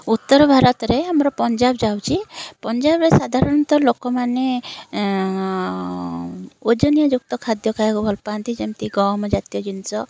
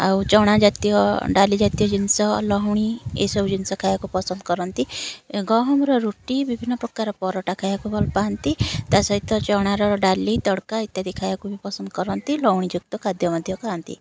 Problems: constant background noise